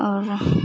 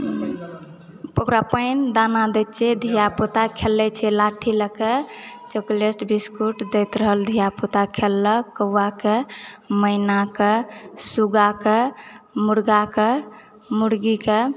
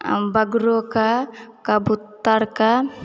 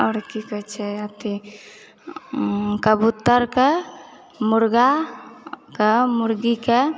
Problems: background conversations at intervals